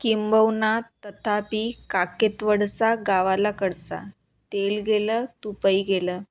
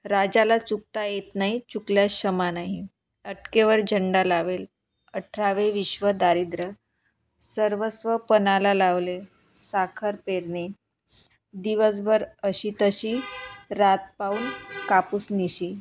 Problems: none marked